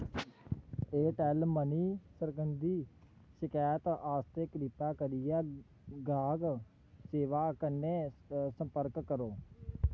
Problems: low volume